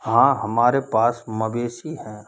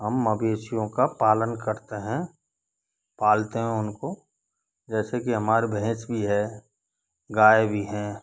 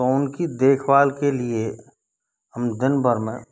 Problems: background sounds at intervals